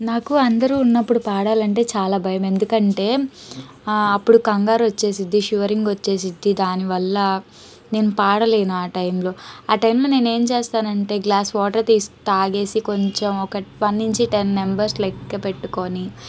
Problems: background sounds at intervals